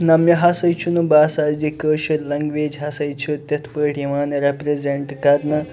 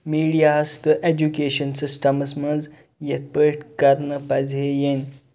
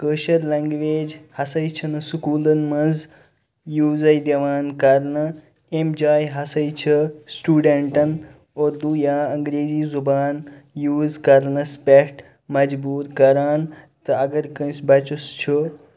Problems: none marked